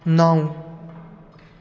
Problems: constant background noise